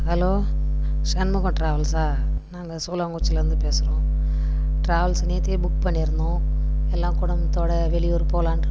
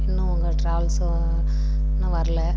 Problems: background sounds at intervals